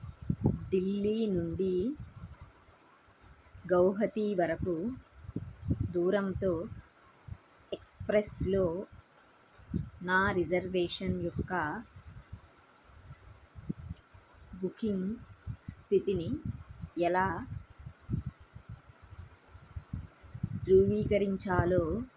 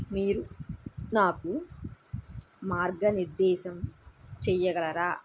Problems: background conversations at intervals